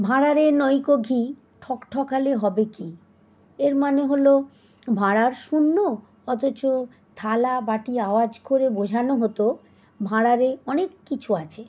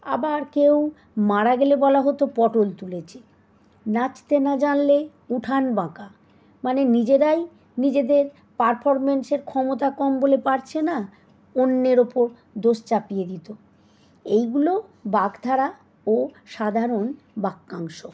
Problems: none marked